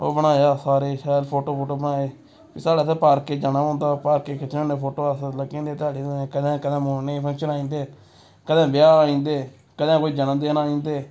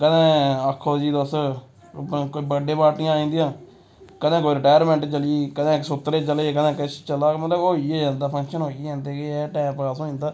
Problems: constant background noise